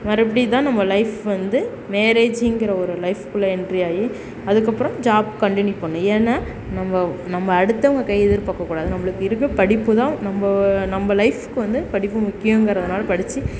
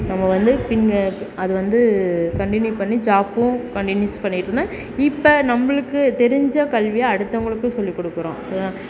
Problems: none marked